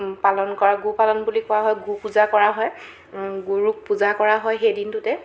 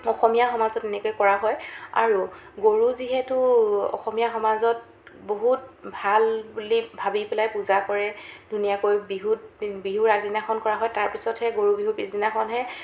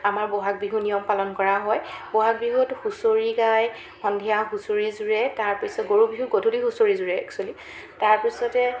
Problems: constant background noise